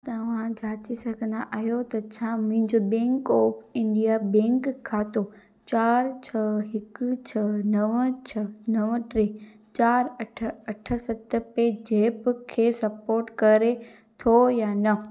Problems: constant background noise, echo